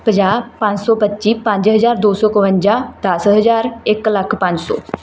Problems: none marked